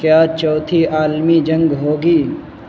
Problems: constant background noise